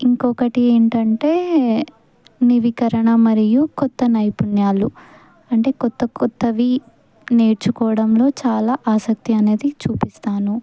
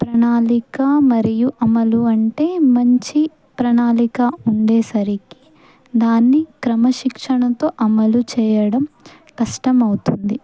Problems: background sounds at intervals